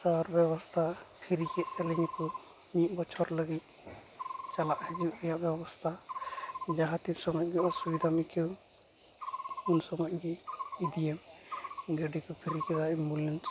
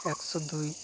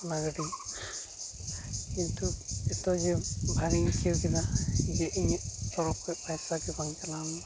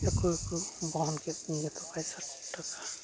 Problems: constant background noise, background conversations at intervals